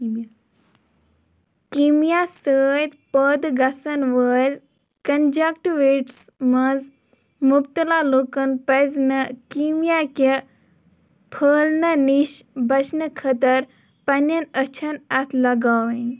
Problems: background sounds at intervals